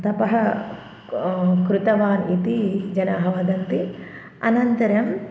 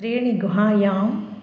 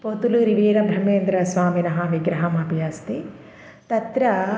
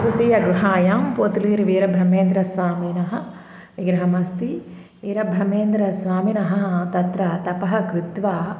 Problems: background conversations at intervals